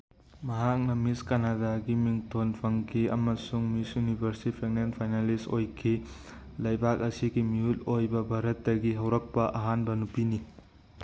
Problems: none marked